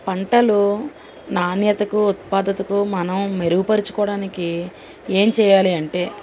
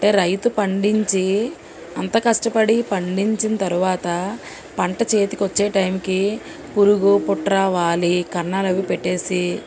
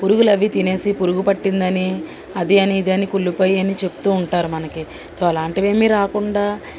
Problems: constant background noise